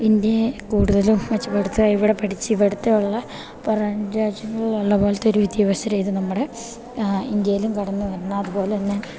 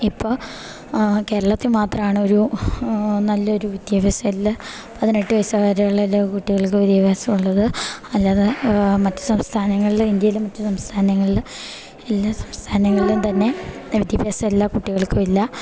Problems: none marked